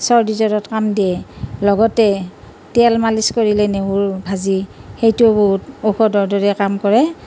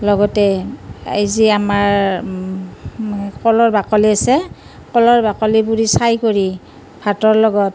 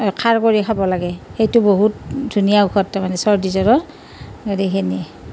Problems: none marked